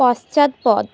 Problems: constant background noise, continuous background conversations